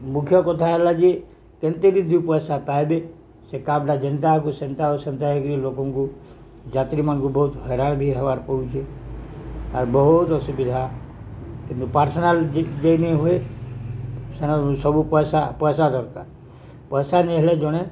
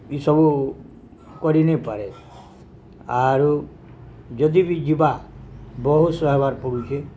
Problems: none marked